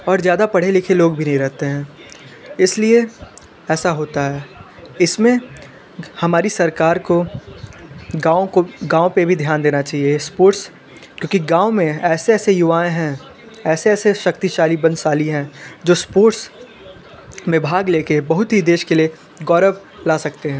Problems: background conversations at intervals